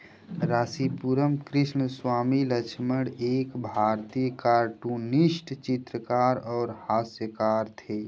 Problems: constant background noise